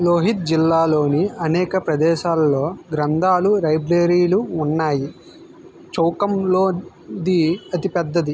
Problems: constant background noise